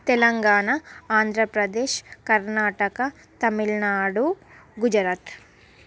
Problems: none marked